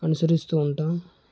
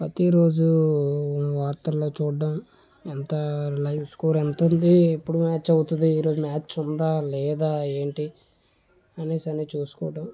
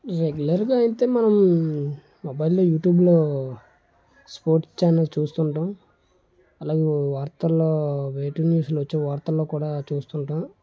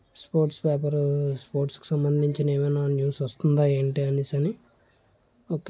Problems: none marked